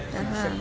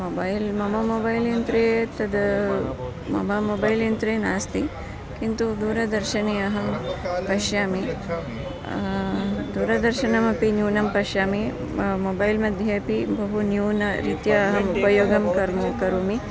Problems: background sounds at intervals, continuous background conversations